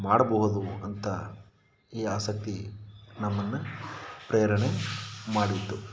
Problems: background sounds at intervals